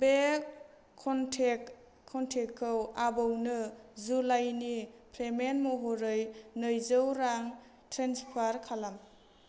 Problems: constant background noise